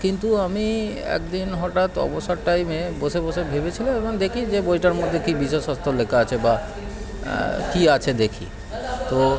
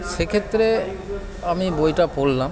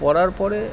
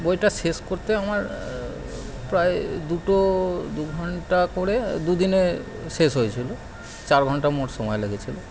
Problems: constant background noise, continuous background conversations